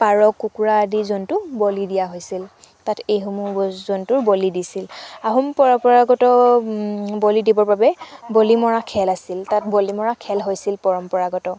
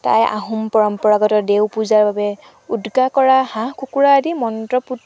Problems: background sounds at intervals